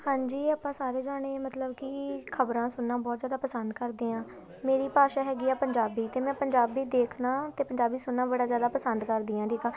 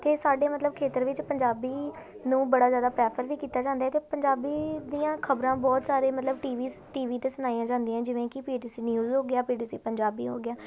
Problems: constant background noise, continuous background conversations